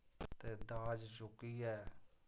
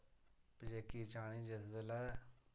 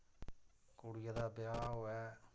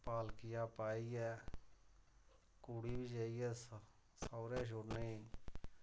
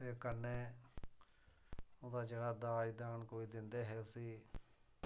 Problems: low volume